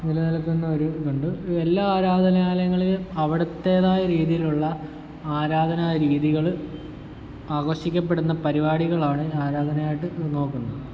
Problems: constant background noise, low volume